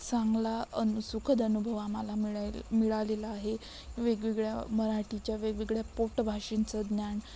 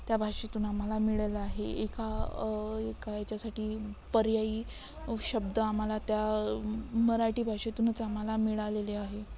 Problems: constant background noise